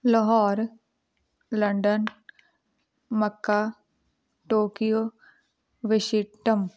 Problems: none marked